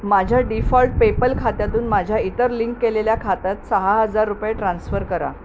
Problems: constant background noise